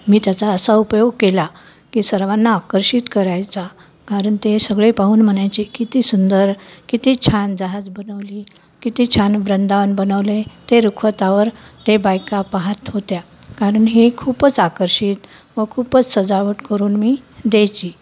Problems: constant background noise